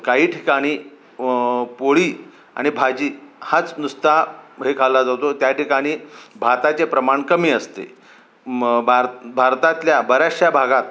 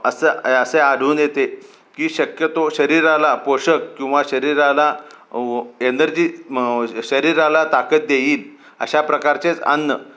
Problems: constant background noise